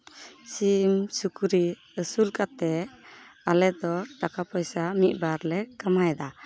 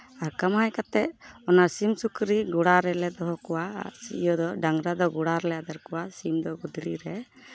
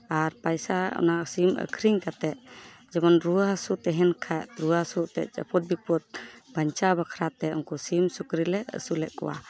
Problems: constant background noise, background conversations at intervals